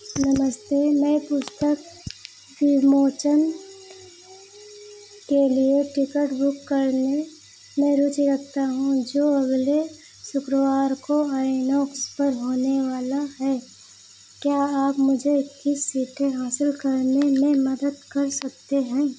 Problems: none marked